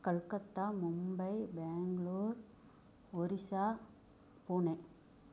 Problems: low volume